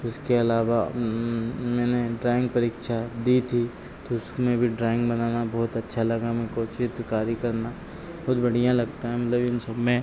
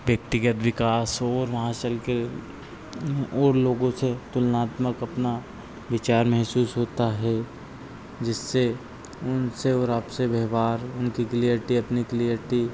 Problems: constant background noise